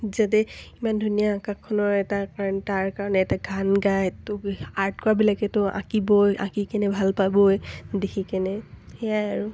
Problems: none marked